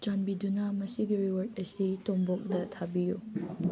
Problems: low volume